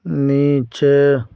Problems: none marked